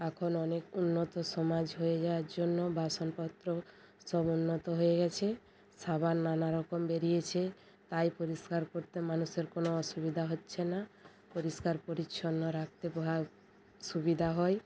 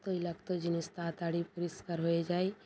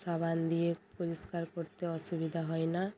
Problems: constant background noise